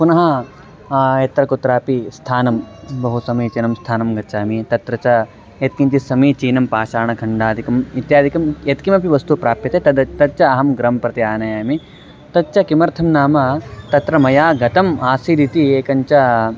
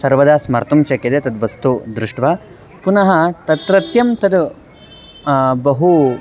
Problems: background sounds at intervals